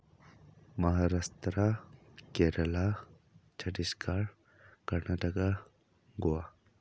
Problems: low volume